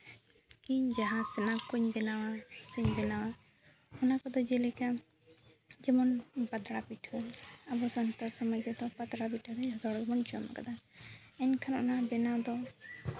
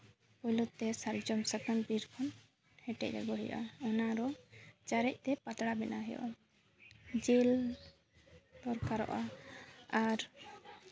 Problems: background sounds at intervals